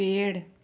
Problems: none marked